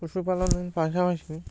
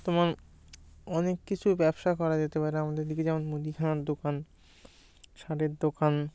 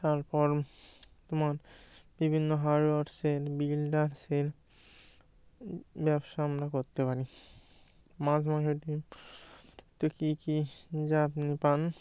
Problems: background sounds at intervals